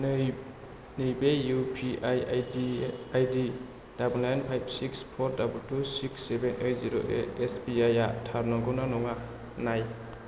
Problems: low volume